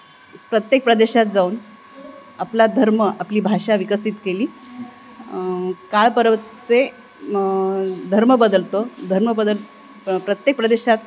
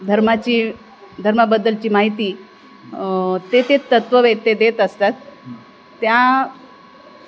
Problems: constant background noise